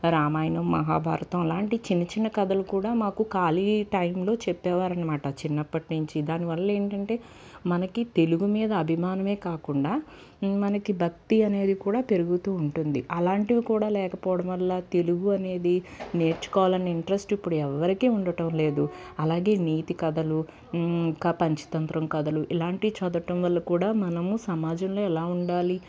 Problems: constant background noise, background conversations at intervals